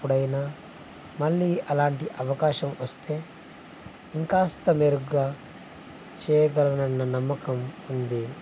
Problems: constant background noise, low volume